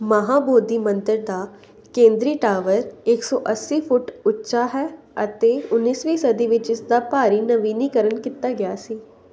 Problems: none marked